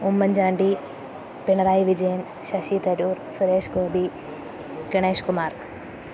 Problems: constant background noise, low volume